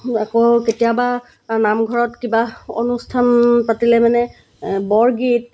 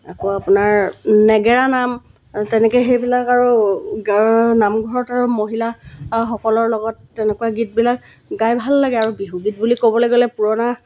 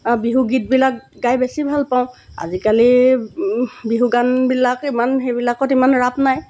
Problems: background sounds at intervals